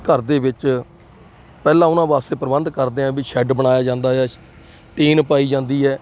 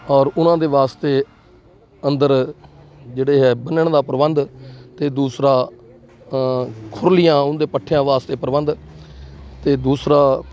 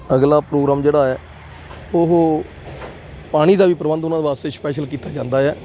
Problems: none marked